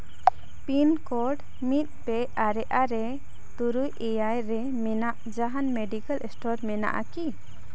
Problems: none marked